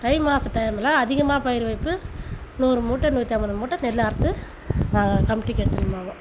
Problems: constant background noise